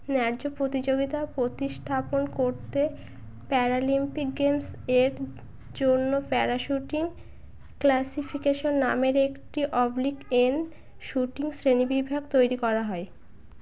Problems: background sounds at intervals, continuous background conversations